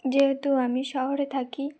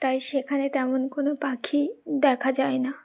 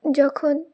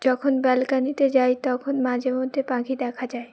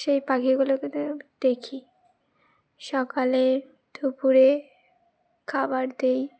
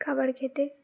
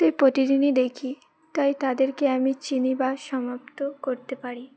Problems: background sounds at intervals